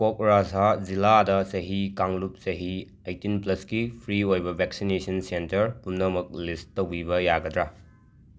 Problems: background sounds at intervals